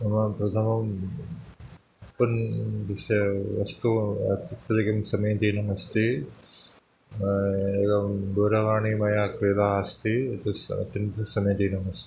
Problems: background sounds at intervals